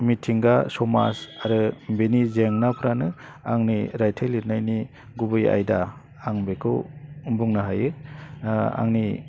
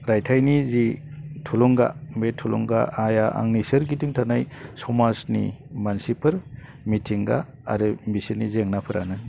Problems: low volume